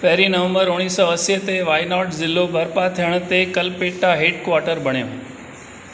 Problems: none marked